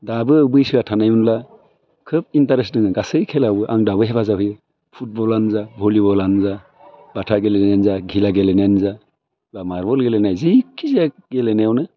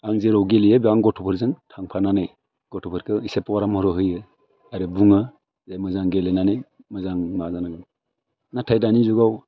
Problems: none marked